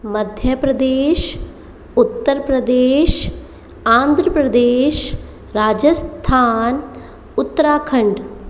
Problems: echo